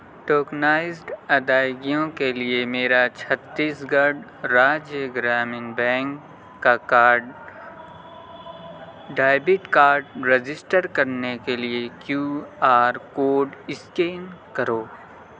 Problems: constant background noise